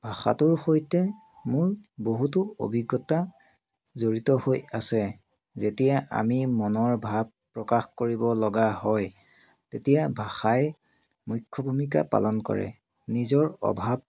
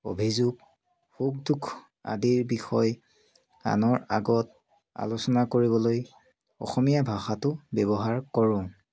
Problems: continuous background conversations